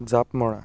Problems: none marked